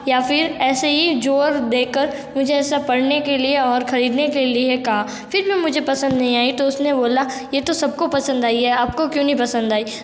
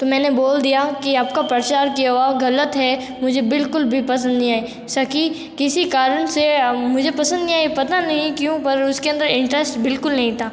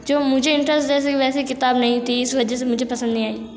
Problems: background sounds at intervals